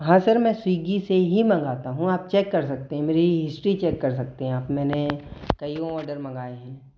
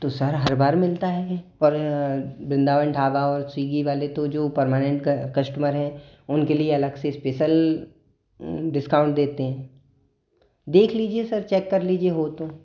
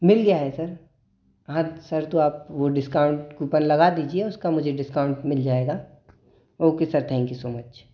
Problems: echo